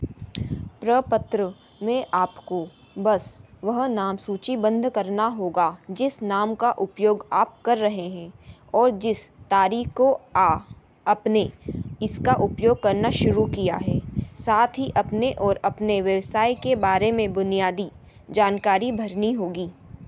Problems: background sounds at intervals